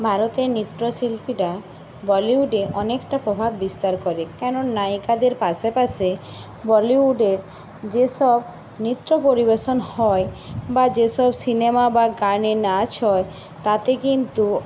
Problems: constant background noise